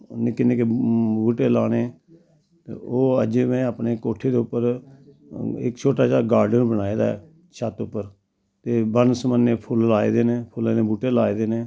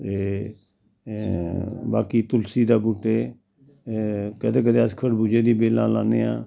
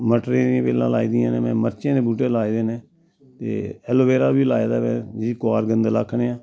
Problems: constant background noise, background conversations at intervals